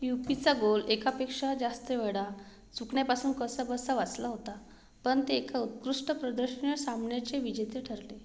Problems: background sounds at intervals